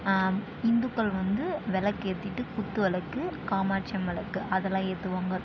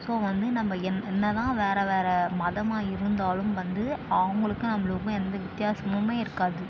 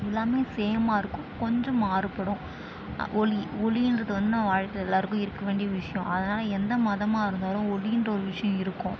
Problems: constant background noise